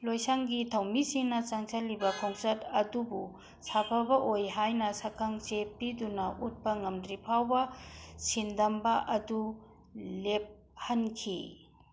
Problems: none marked